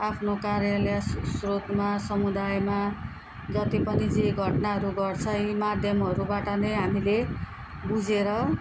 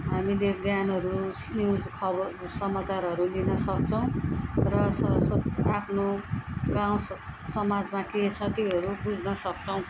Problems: background conversations at intervals